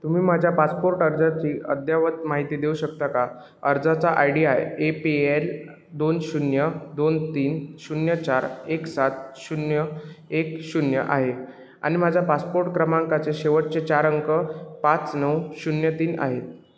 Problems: none marked